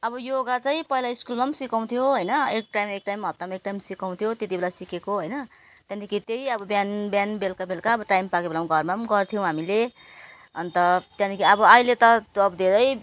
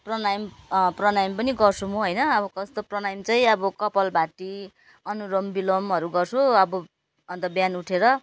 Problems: none marked